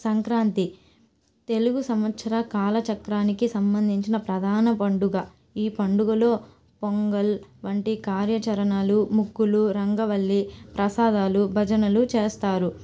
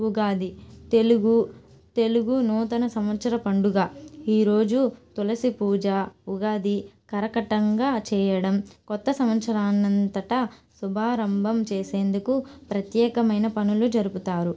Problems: background sounds at intervals